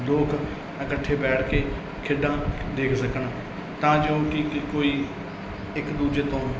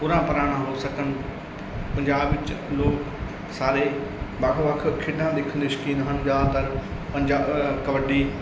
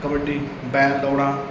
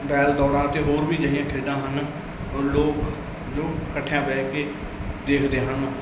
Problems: none marked